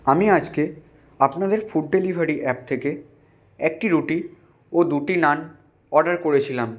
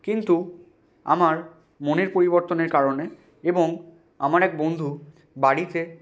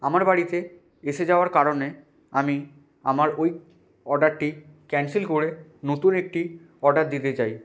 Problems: constant background noise